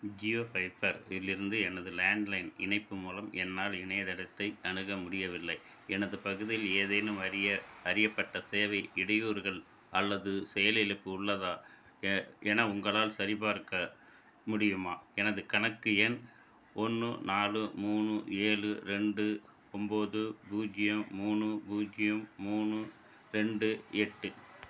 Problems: background sounds at intervals